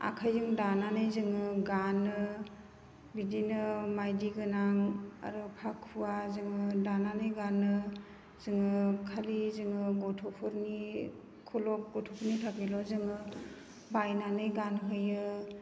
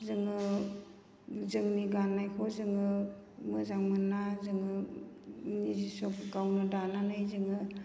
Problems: low volume